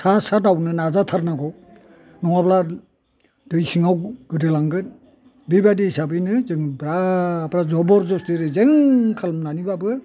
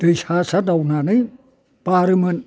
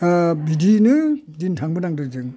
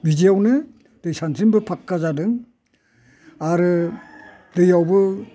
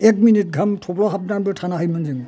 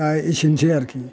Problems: low volume